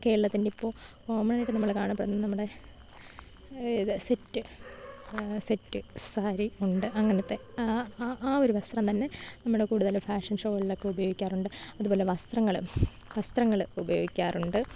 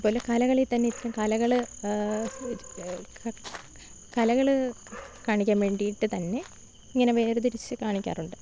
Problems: none marked